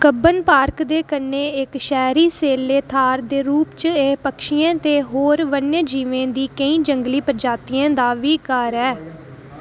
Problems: none marked